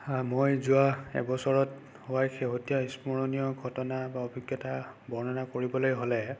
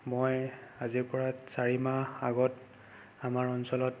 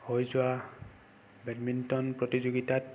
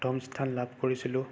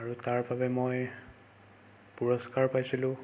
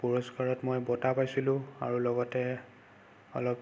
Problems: constant background noise